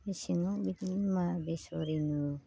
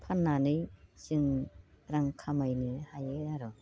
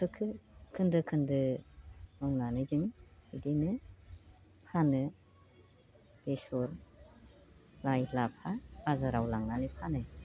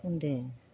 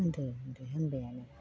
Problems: constant background noise